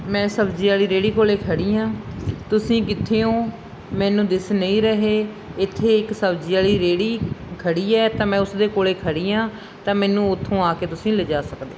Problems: background sounds at intervals